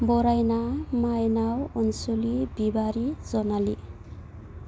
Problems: constant background noise